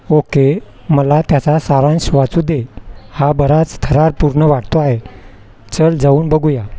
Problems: constant background noise, background conversations at intervals